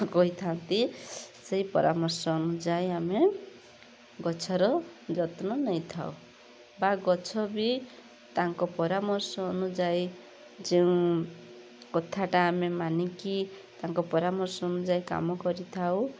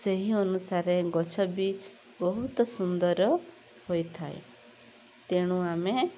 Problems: constant background noise